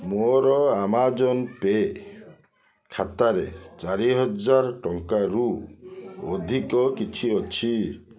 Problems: continuous background conversations